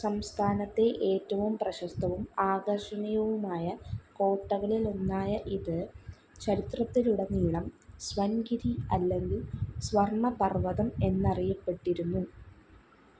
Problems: constant background noise, low volume